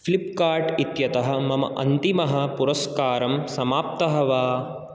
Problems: none marked